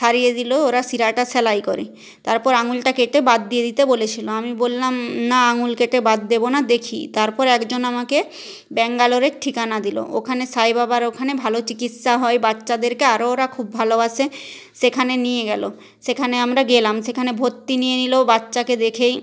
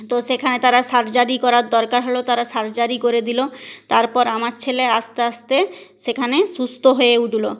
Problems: none marked